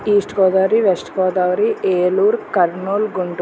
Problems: none marked